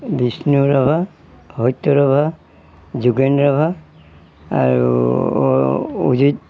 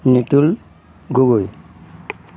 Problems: background sounds at intervals